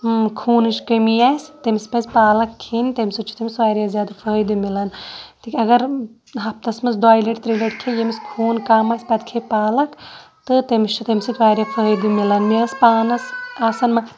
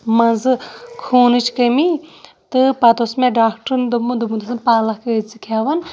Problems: none marked